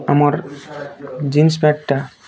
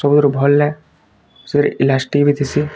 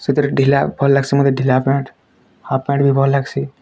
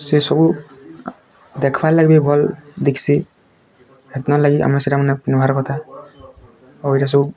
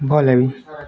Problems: constant background noise, continuous background conversations